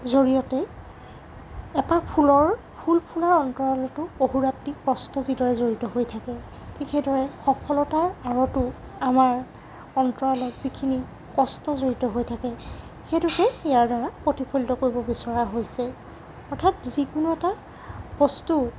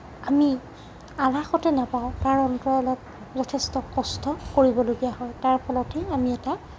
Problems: constant background noise